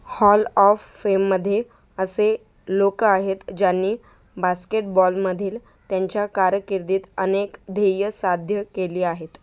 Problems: background sounds at intervals